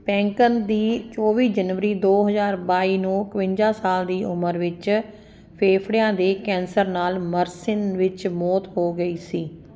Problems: constant background noise